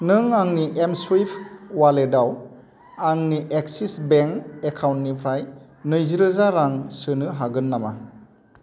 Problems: constant background noise